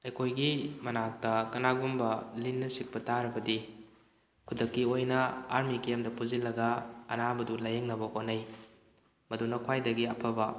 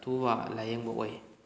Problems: none marked